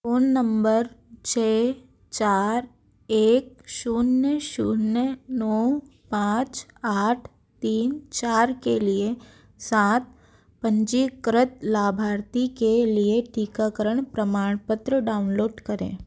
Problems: background sounds at intervals